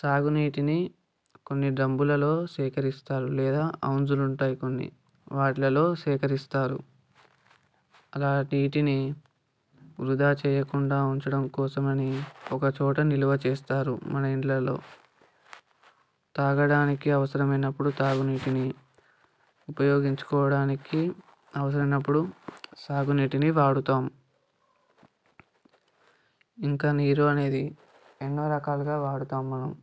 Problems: background sounds at intervals